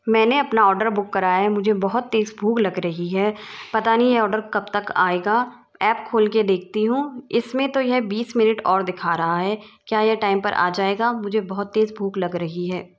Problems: none marked